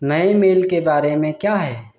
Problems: background sounds at intervals